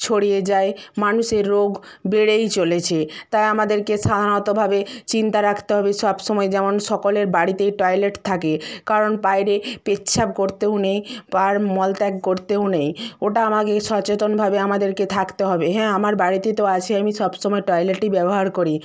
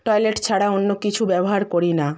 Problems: none marked